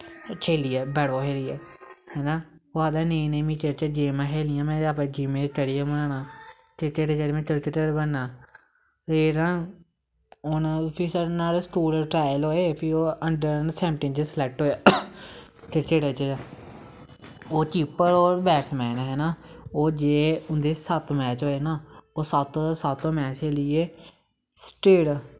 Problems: background sounds at intervals